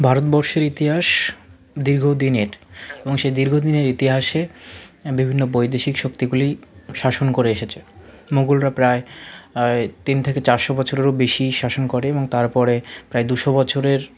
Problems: continuous background conversations